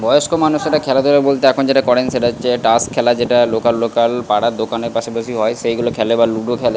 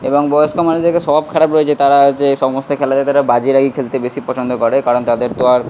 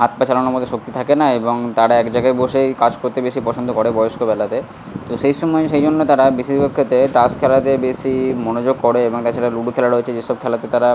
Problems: constant background noise